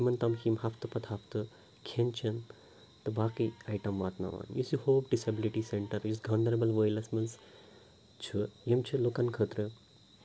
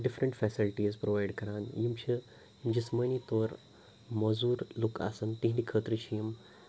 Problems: constant background noise, low volume